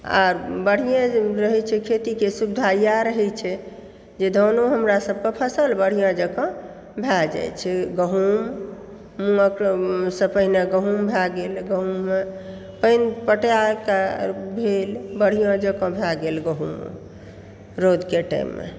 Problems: background sounds at intervals